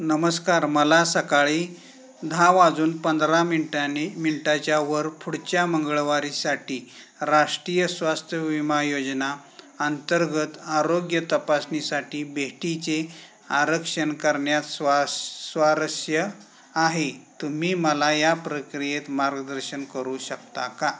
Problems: none marked